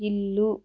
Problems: none marked